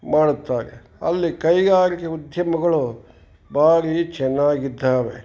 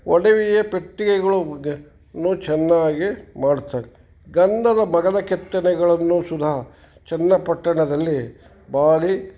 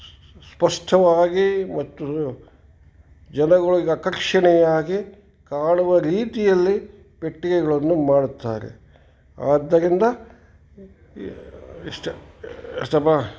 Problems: background conversations at intervals